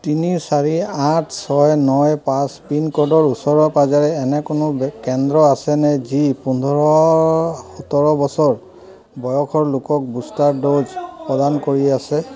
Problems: continuous background conversations